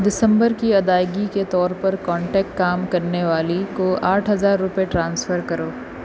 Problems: constant background noise